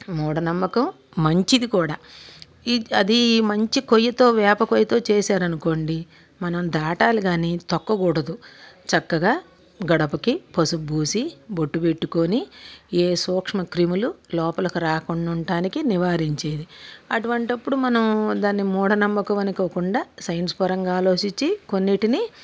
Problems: constant background noise